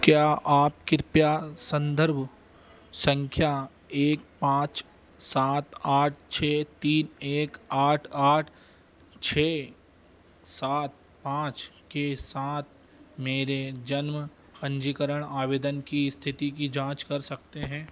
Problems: constant background noise